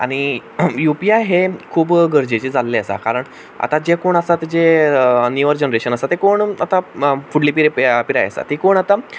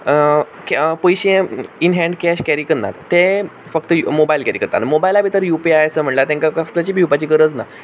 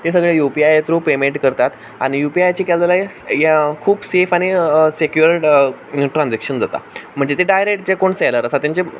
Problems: background sounds at intervals